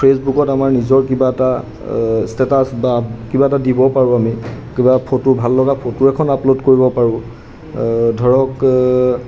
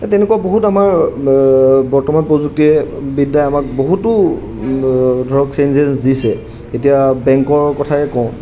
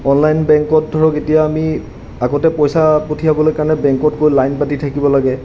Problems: background sounds at intervals